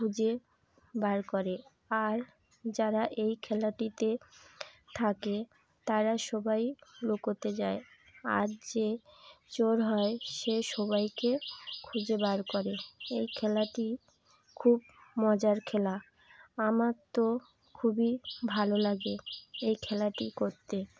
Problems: none marked